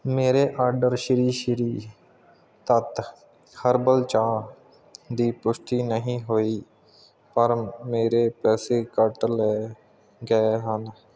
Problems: none marked